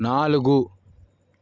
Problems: none marked